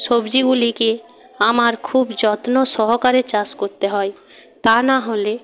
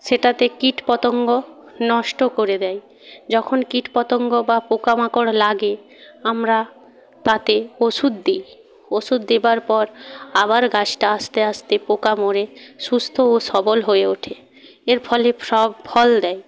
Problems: background conversations at intervals